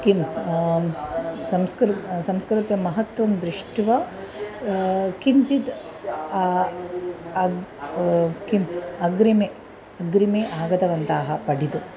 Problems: none marked